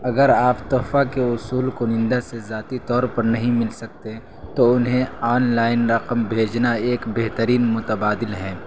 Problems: constant background noise